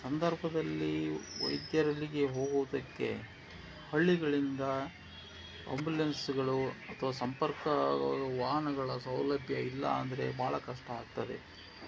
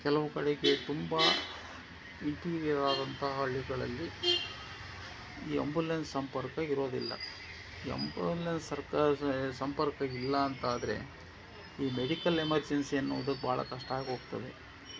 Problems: constant background noise